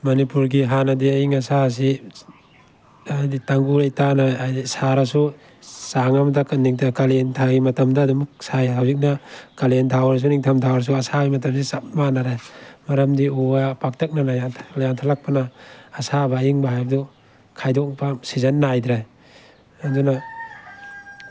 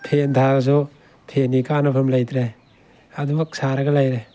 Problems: background sounds at intervals